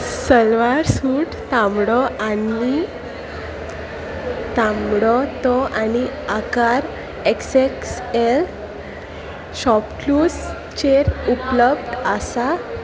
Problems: constant background noise, continuous background conversations